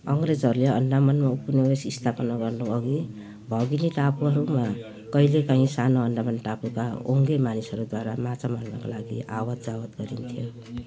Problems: constant background noise